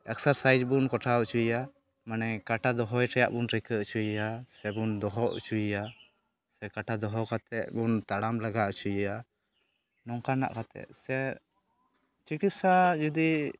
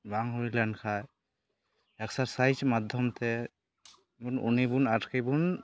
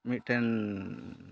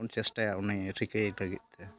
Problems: background conversations at intervals